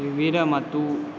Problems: constant background noise